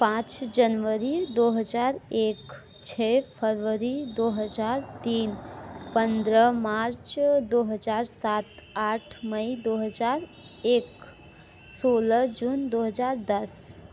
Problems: none marked